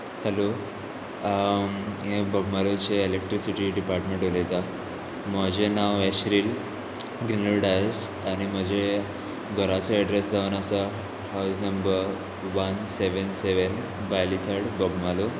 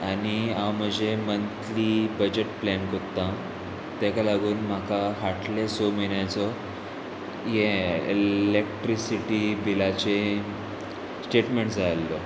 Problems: constant background noise